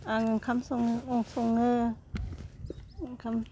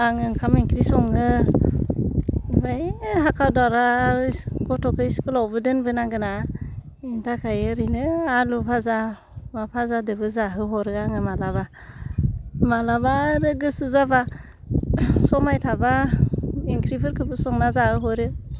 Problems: low volume